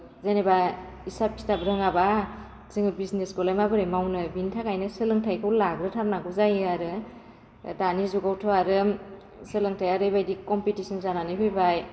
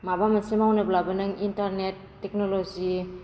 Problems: constant background noise